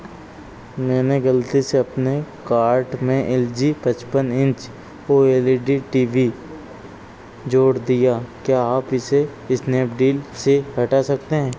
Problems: constant background noise